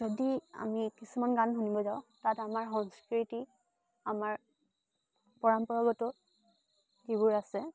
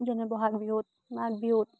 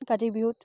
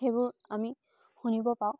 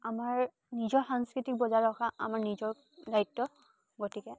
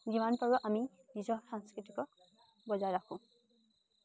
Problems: background sounds at intervals